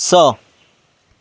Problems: none marked